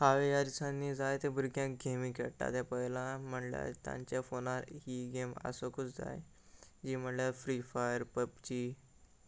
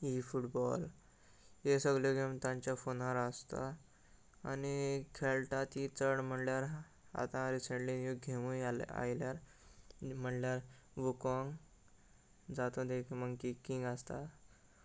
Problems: constant background noise